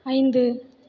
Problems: none marked